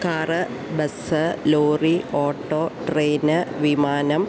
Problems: constant background noise